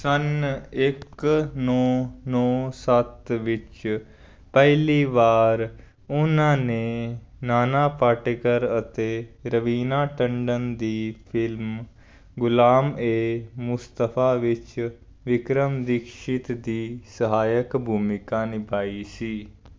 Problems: constant background noise